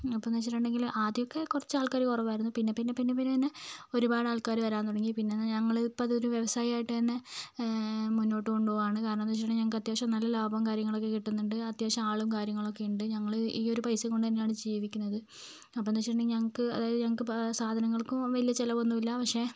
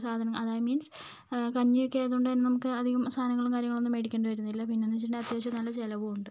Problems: low volume